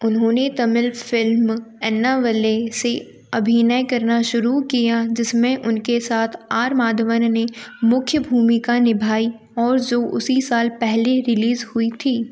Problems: none marked